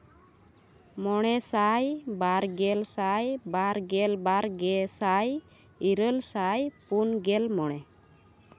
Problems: constant background noise